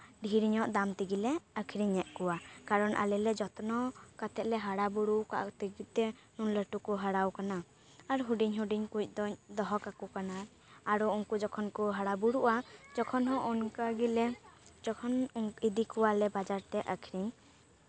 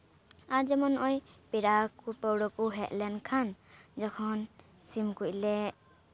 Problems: background sounds at intervals